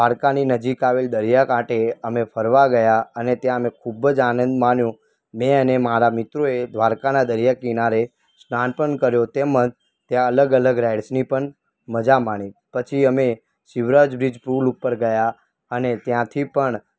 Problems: background sounds at intervals